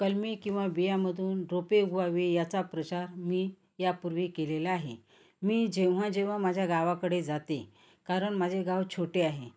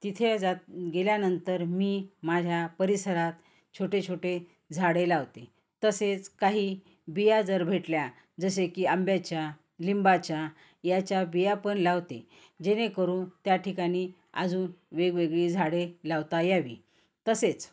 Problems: constant background noise